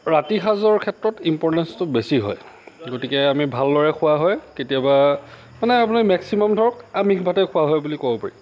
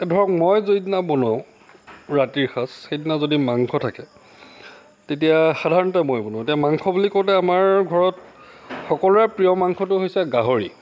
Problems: none marked